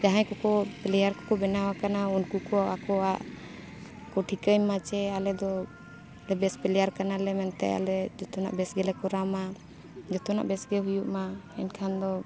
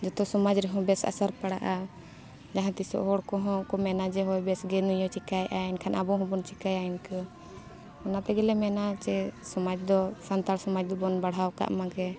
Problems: constant background noise, background conversations at intervals